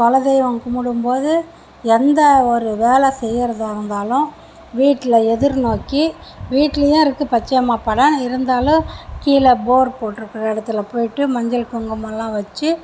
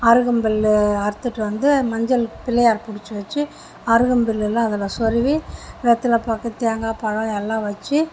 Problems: background sounds at intervals